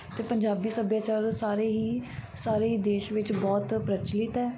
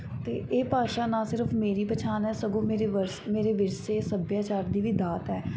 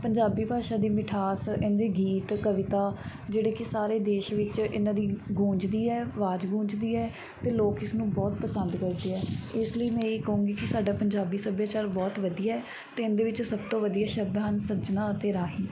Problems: background sounds at intervals, background conversations at intervals